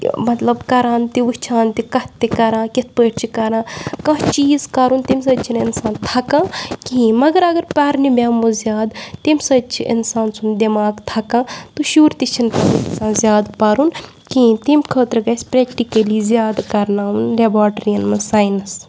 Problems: background sounds at intervals